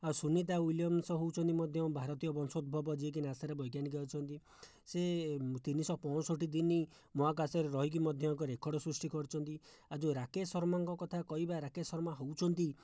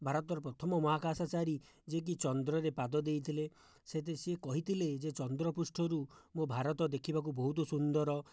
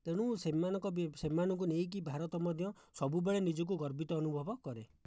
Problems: low volume